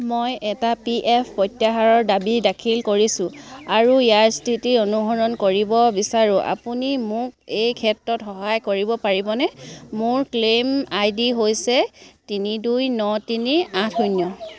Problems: none marked